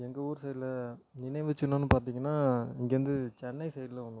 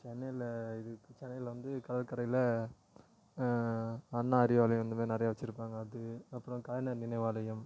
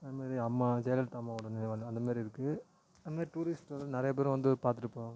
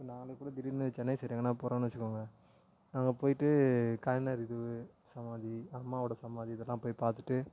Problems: low volume